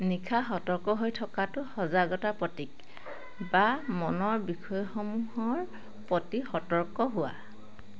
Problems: none marked